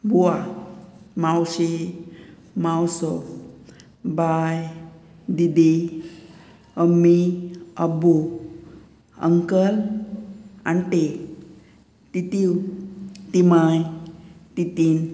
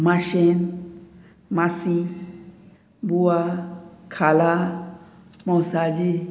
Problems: background sounds at intervals